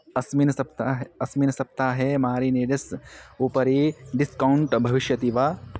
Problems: constant background noise